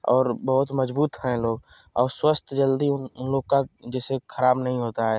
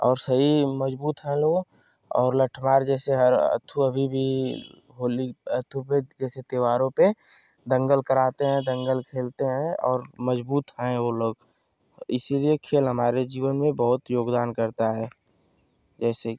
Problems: none marked